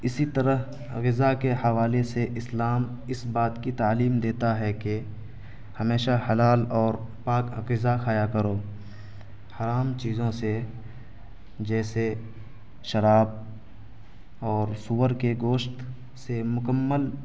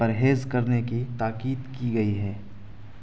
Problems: constant background noise